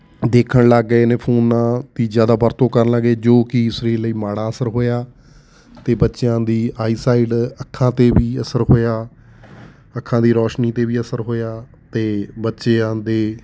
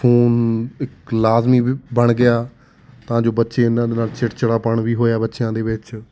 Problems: none marked